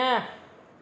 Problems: constant background noise, echo